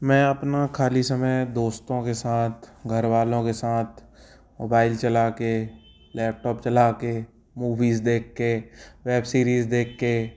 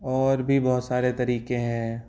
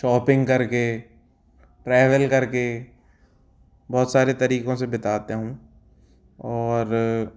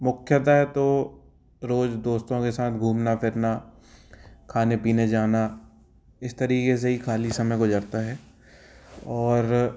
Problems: background sounds at intervals